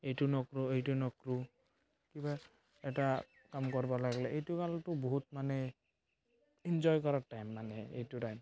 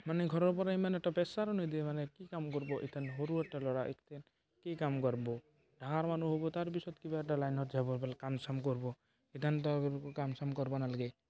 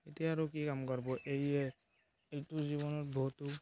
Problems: background sounds at intervals, continuous background conversations